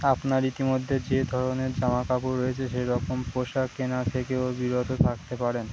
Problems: constant background noise